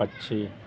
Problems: constant background noise, continuous background conversations